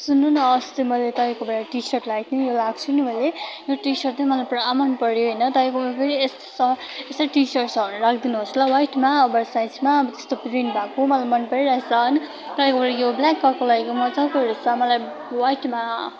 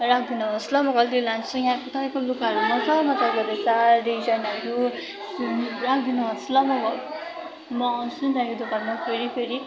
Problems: constant background noise